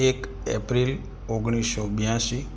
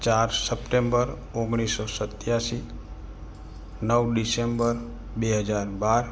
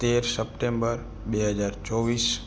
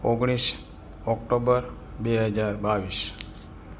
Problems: background sounds at intervals